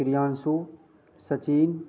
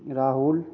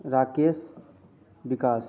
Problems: constant background noise